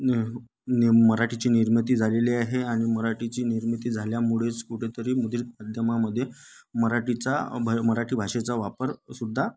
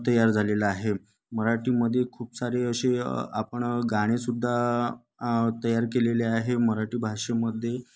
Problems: none marked